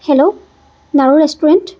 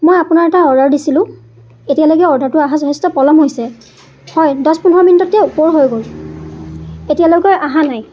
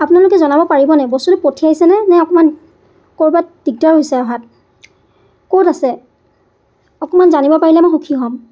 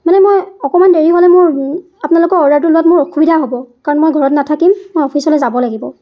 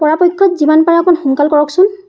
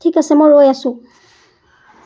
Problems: none marked